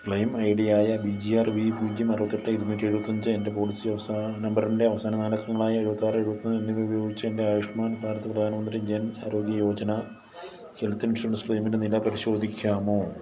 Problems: none marked